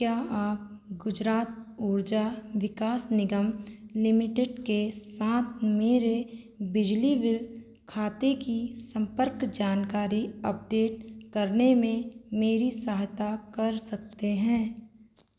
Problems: constant background noise